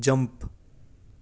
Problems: none marked